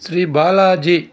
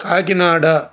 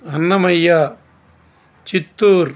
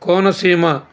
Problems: constant background noise